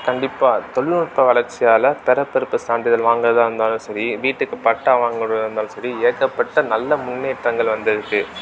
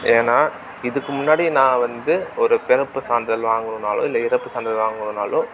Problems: background sounds at intervals